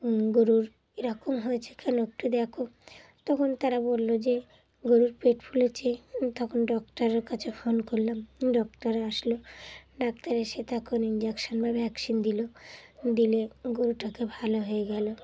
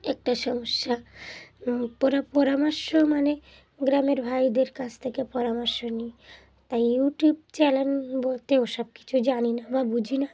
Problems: background sounds at intervals, background conversations at intervals